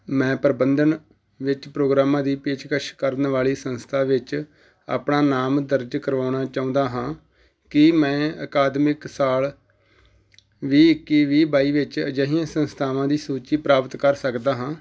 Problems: background sounds at intervals